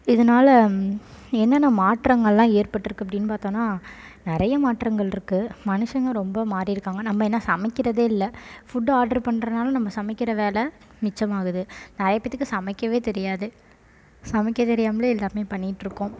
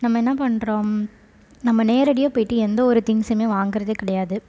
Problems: constant background noise